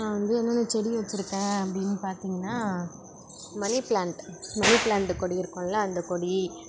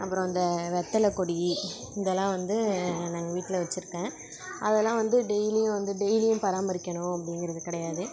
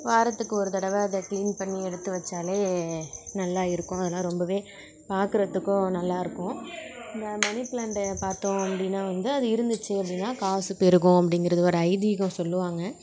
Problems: background sounds at intervals